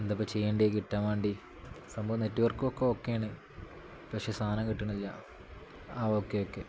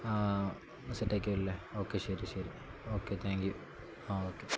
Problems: background sounds at intervals